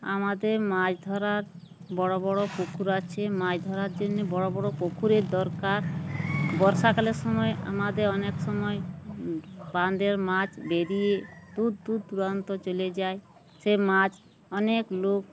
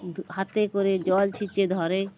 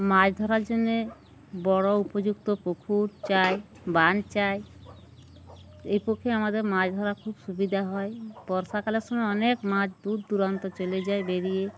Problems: none marked